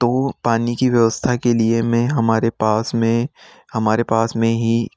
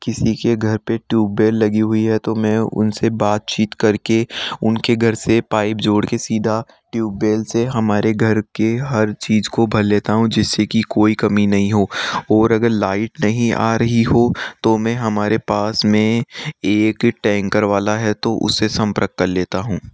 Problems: none marked